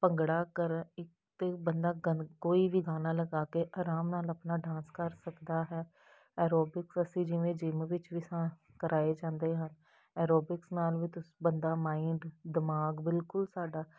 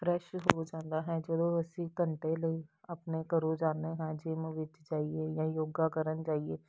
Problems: background sounds at intervals